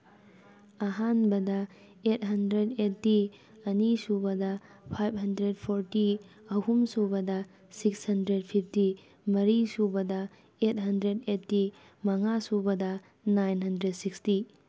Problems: none marked